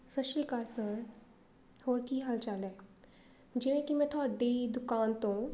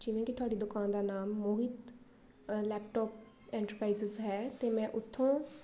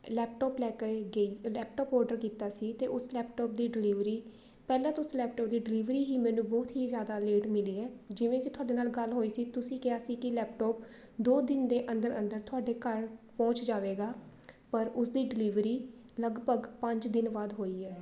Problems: background sounds at intervals, background conversations at intervals